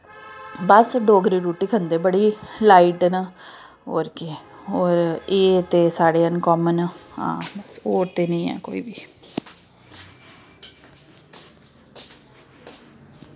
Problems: background sounds at intervals